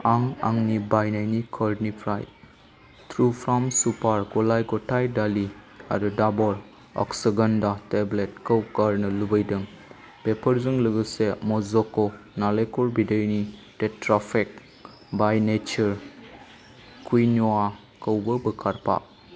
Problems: constant background noise